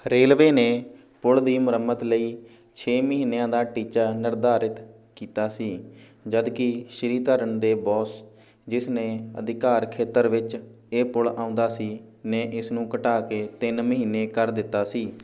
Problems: background conversations at intervals